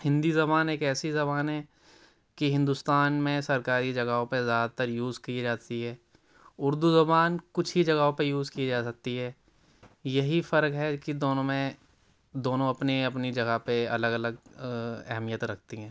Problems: low volume